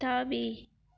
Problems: none marked